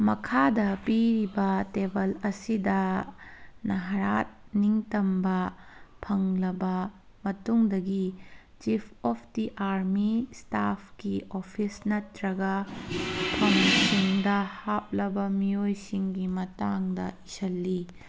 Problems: background sounds at intervals